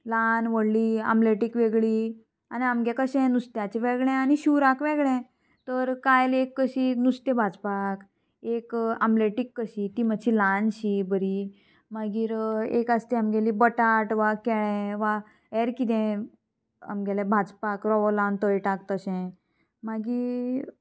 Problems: constant background noise, background conversations at intervals